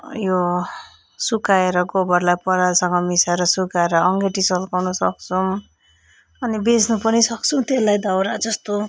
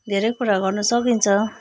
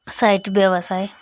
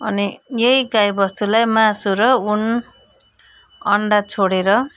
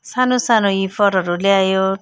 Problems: background sounds at intervals